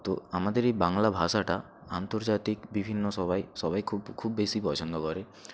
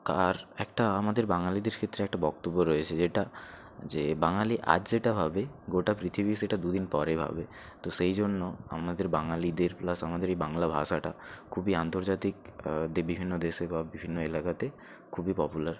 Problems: none marked